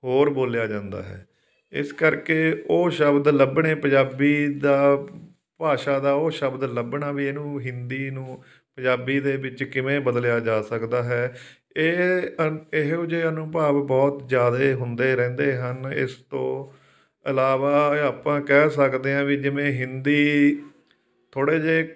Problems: none marked